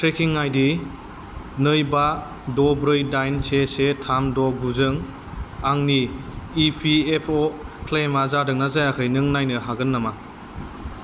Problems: constant background noise